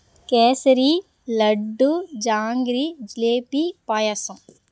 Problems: background sounds at intervals